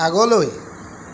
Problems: constant background noise